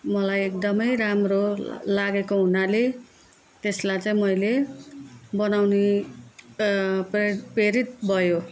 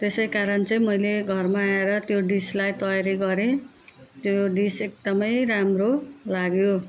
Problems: none marked